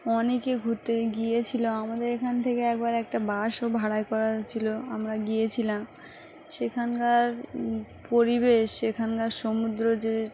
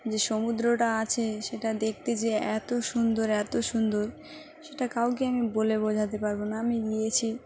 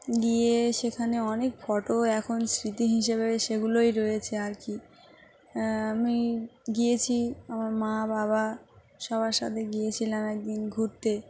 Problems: none marked